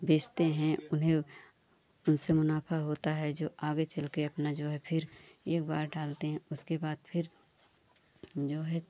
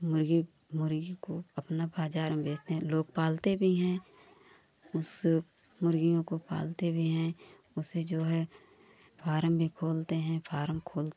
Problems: none marked